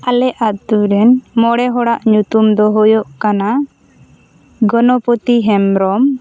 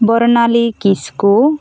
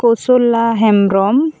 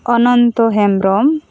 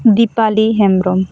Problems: constant background noise, continuous background conversations